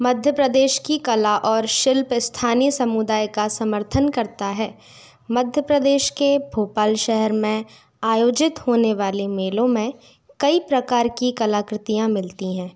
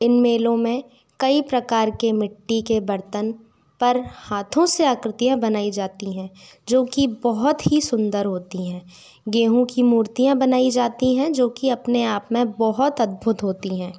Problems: background sounds at intervals